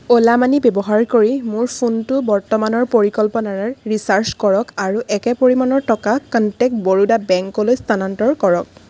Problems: constant background noise